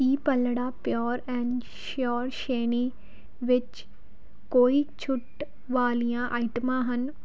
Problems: background sounds at intervals